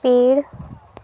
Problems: constant background noise